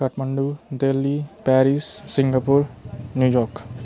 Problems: constant background noise